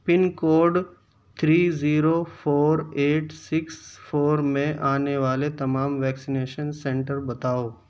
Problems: constant background noise